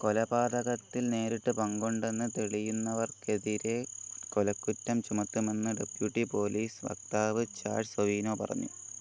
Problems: constant background noise